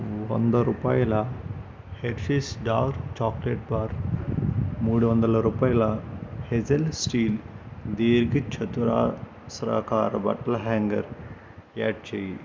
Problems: constant background noise